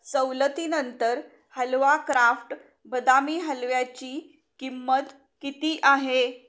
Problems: background sounds at intervals